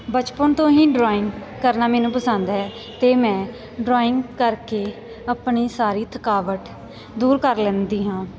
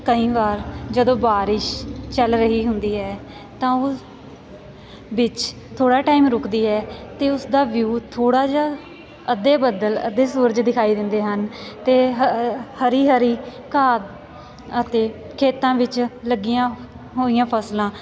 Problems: background sounds at intervals, continuous background conversations